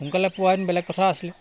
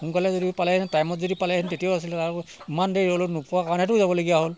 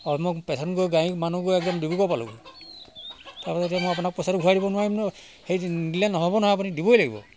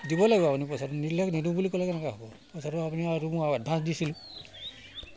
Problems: constant background noise